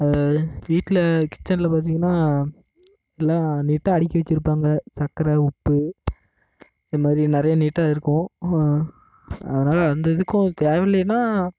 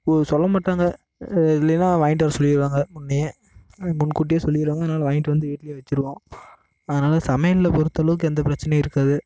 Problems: constant background noise